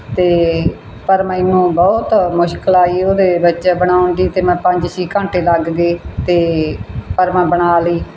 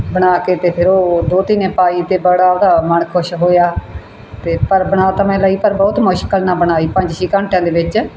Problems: none marked